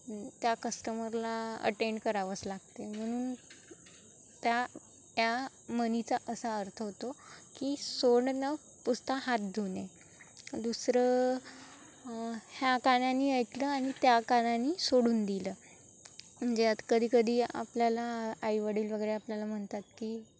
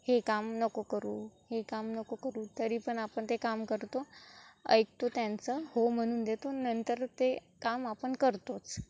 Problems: constant background noise